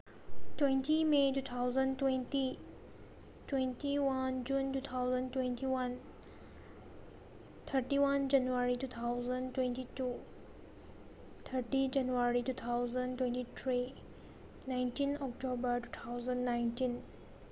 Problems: constant background noise